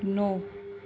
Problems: none marked